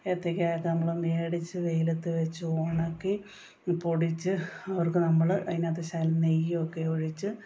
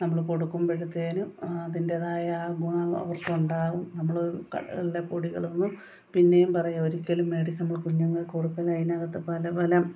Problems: background sounds at intervals